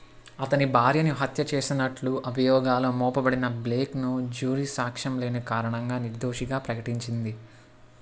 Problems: none marked